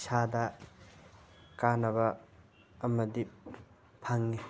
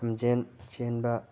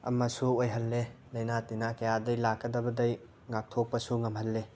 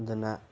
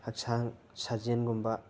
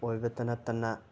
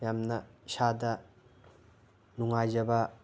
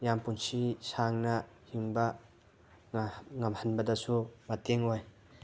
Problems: background sounds at intervals